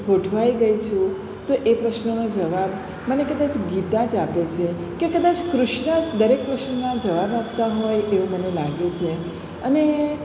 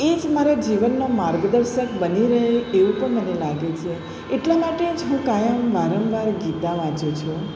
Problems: none marked